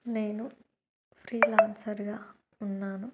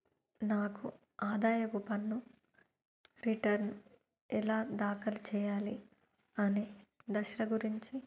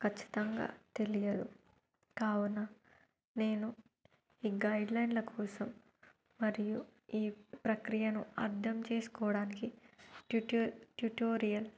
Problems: low volume